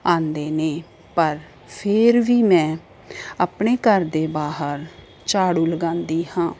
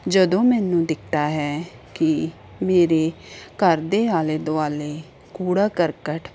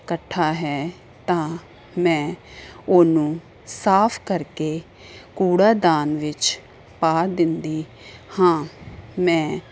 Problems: constant background noise